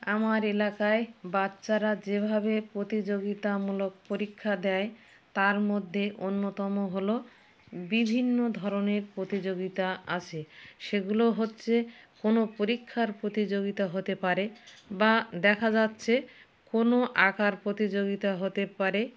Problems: none marked